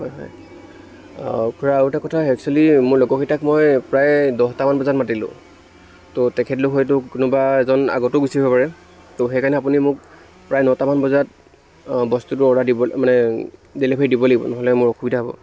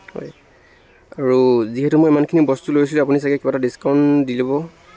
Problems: constant background noise